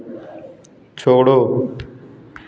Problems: background sounds at intervals, continuous background conversations